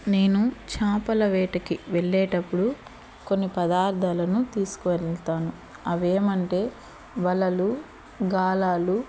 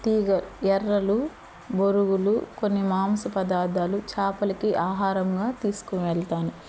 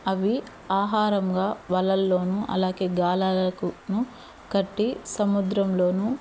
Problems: constant background noise